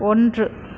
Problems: constant background noise